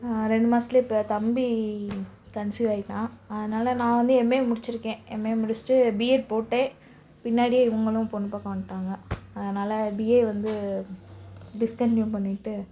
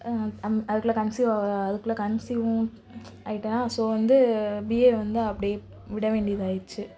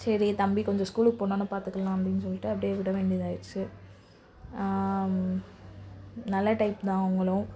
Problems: none marked